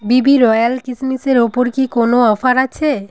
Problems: continuous background conversations